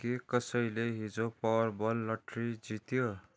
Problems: background sounds at intervals, low volume